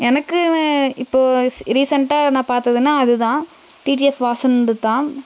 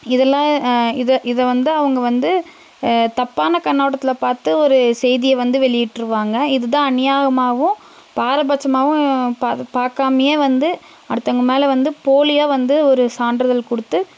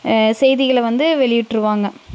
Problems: constant background noise